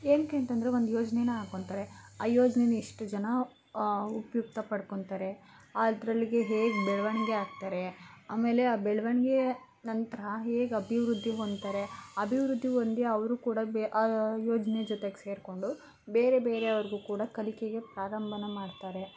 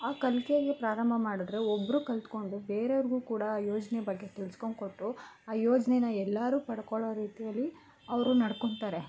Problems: constant background noise